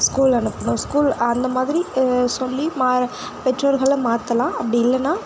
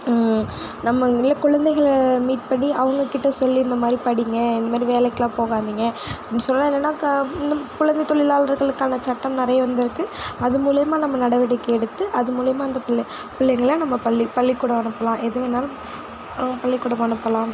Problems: constant background noise